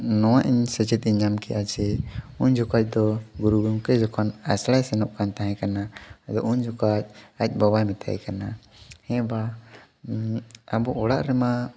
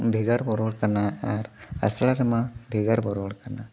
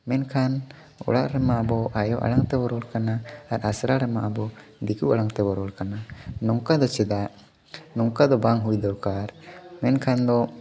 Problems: background sounds at intervals, continuous background conversations